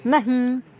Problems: none marked